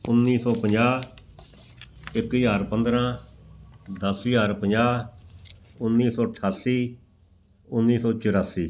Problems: background sounds at intervals